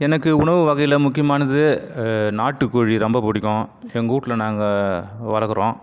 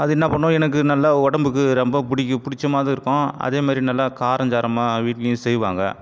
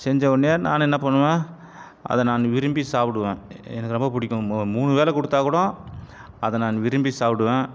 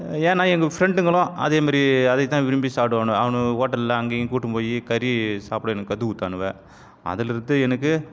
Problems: background sounds at intervals